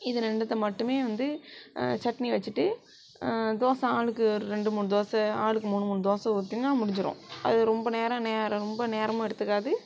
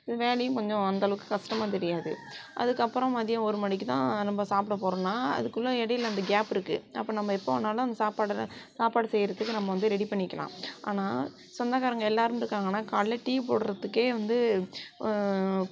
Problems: background sounds at intervals